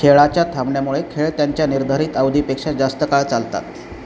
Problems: none marked